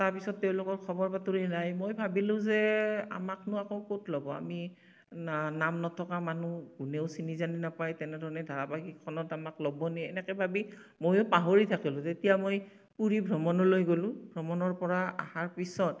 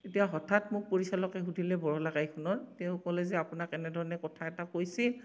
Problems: none marked